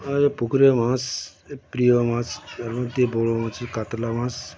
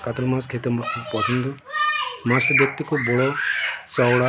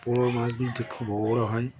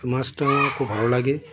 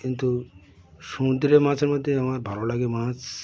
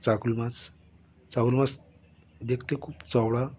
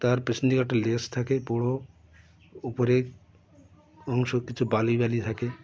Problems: constant background noise, continuous background conversations